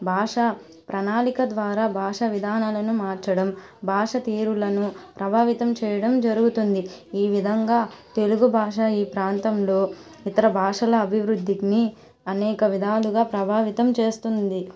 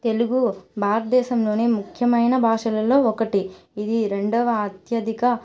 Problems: constant background noise